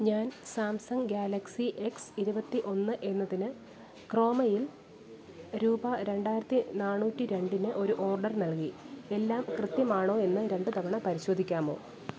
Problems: background sounds at intervals, low volume